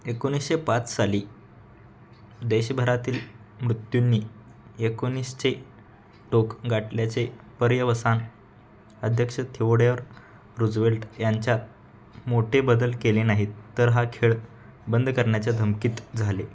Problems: constant background noise, background conversations at intervals